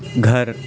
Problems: constant background noise